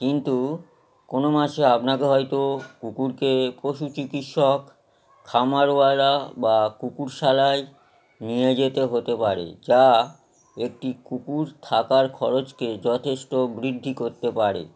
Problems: constant background noise